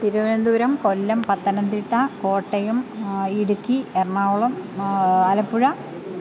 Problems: constant background noise